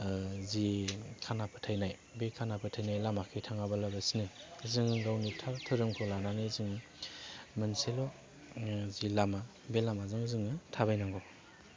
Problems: low volume